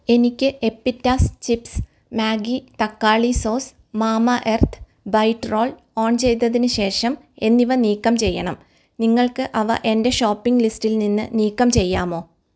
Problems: none marked